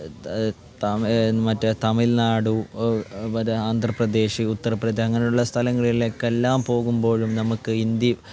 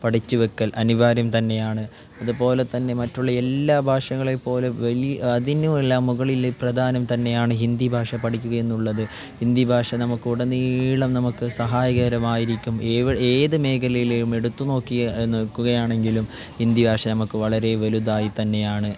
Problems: none marked